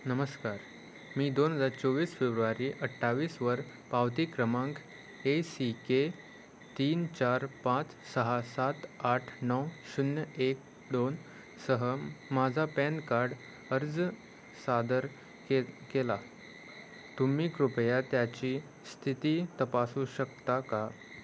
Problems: none marked